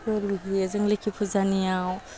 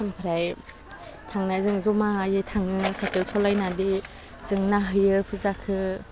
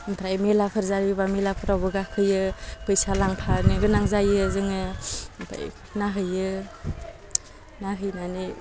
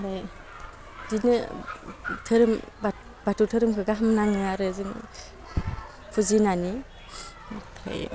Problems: low volume